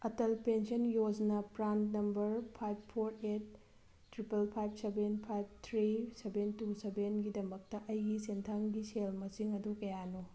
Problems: none marked